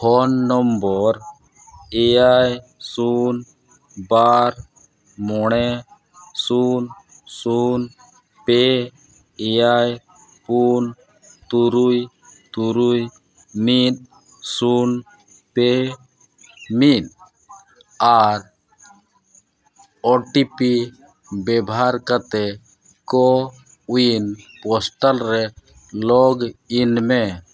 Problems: constant background noise